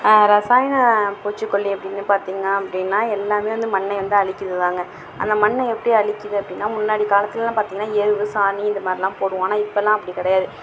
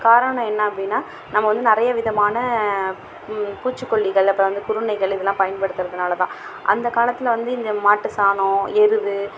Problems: background sounds at intervals